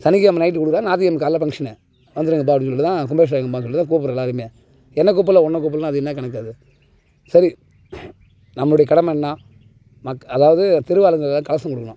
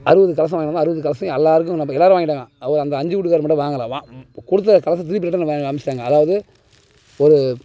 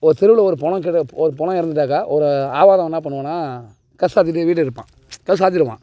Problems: background sounds at intervals